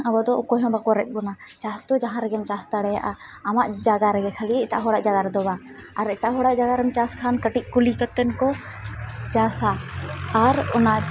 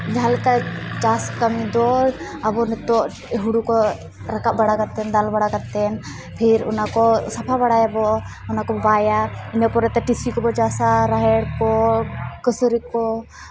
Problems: background sounds at intervals, background conversations at intervals